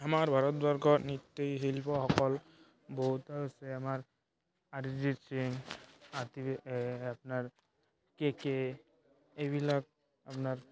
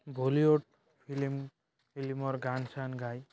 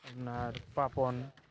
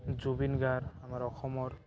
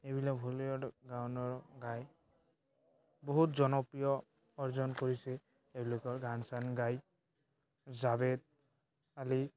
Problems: background sounds at intervals, background conversations at intervals